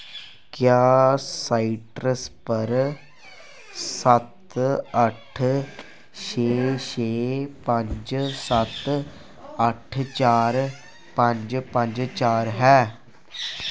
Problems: none marked